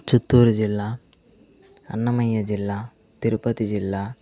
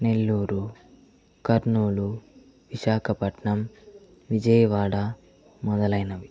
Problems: constant background noise